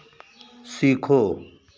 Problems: background sounds at intervals